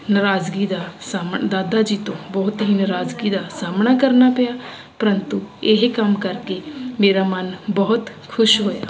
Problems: constant background noise